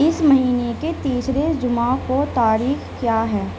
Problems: none marked